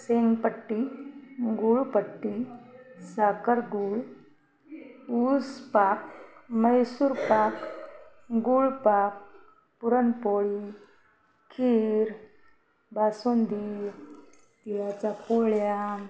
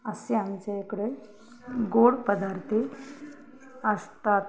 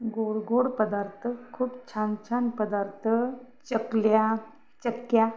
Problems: background sounds at intervals, background conversations at intervals